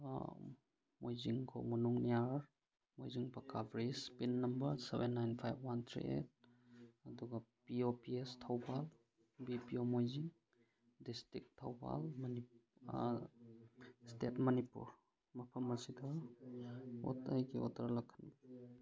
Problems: none marked